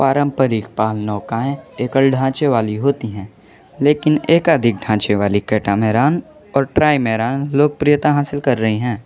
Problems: constant background noise